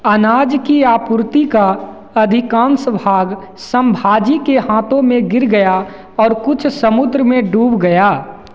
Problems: constant background noise, echo